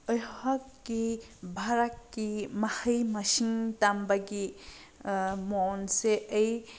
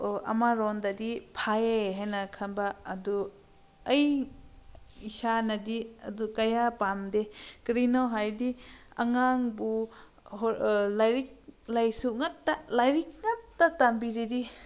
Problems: none marked